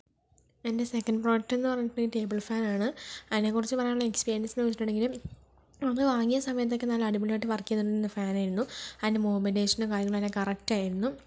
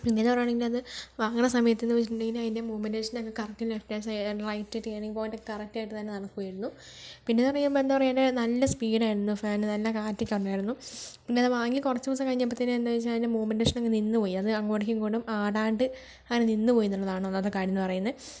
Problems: none marked